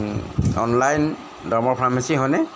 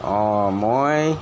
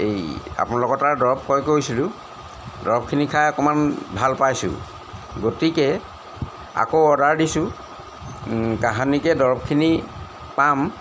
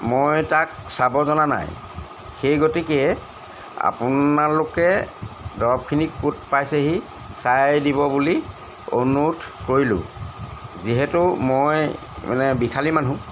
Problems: background sounds at intervals